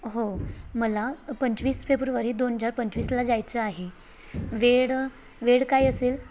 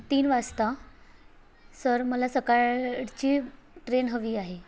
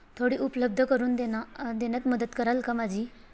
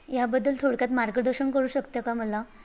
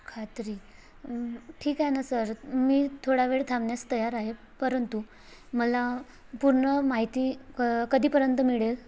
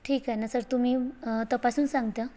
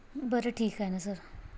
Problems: none marked